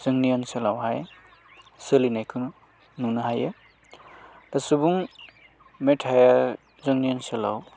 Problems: constant background noise